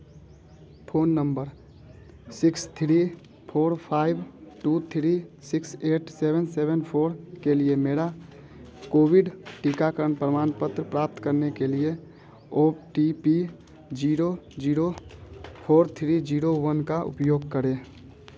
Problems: constant background noise